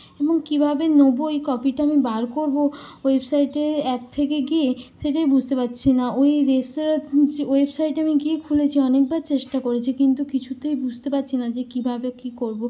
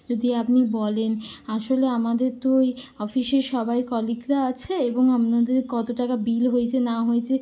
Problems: constant background noise